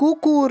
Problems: constant background noise, continuous background conversations